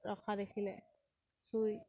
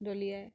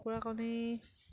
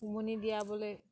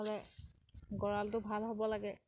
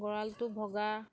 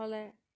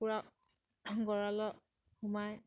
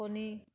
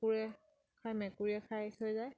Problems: background sounds at intervals